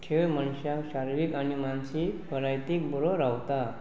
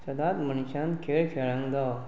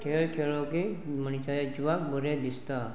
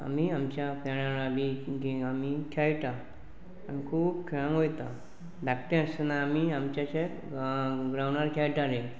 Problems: constant background noise, continuous background conversations